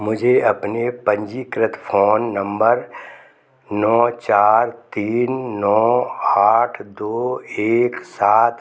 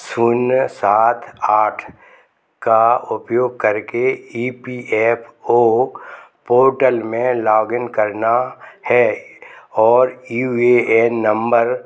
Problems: background conversations at intervals